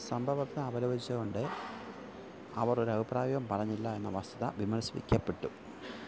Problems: background sounds at intervals, low volume